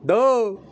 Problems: none marked